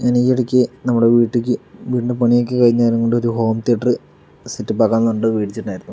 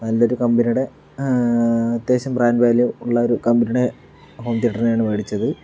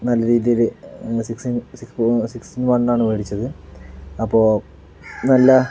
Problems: background sounds at intervals